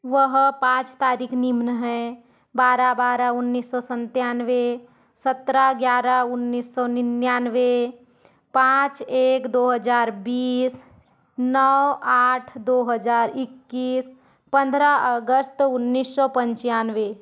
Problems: none marked